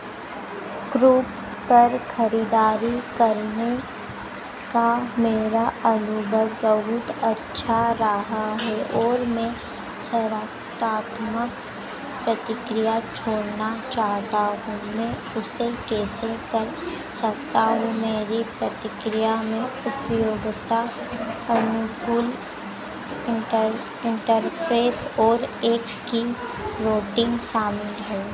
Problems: background sounds at intervals, background conversations at intervals, low volume